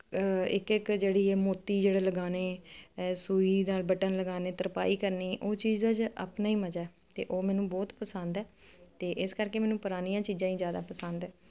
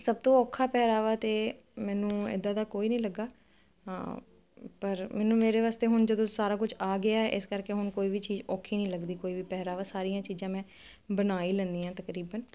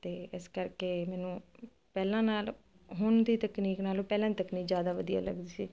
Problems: none marked